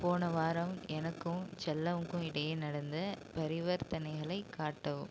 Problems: constant background noise, low volume